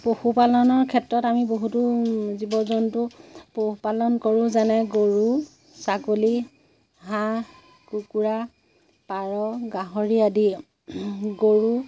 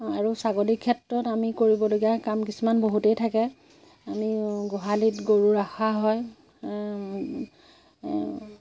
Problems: constant background noise, background conversations at intervals